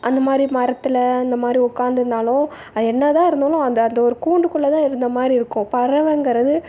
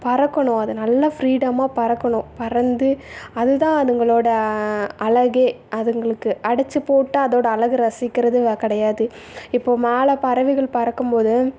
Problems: background sounds at intervals